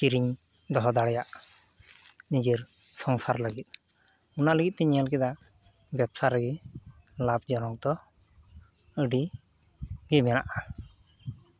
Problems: background sounds at intervals